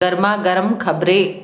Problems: constant background noise